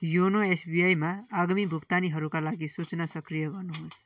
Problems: background sounds at intervals